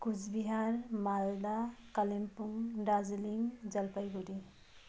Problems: none marked